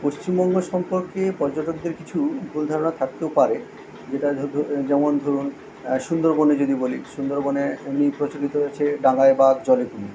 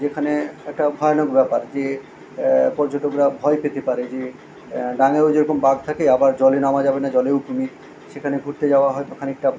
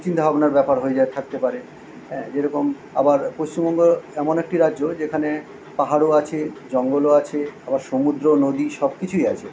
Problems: constant background noise